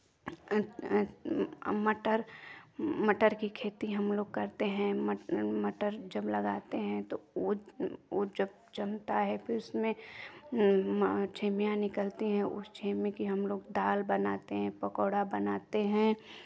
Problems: background sounds at intervals, continuous background conversations